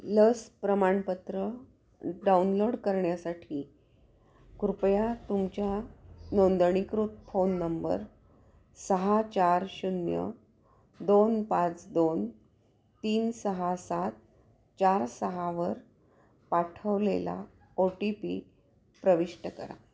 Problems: constant background noise, background conversations at intervals